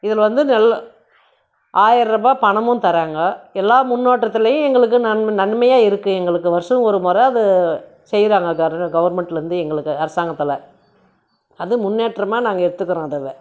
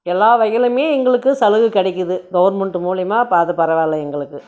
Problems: none marked